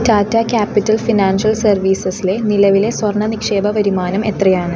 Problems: none marked